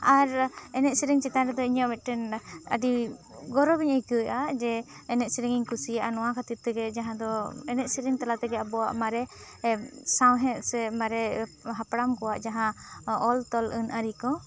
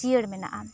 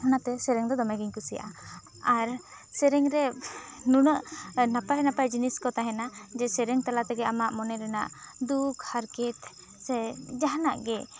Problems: background conversations at intervals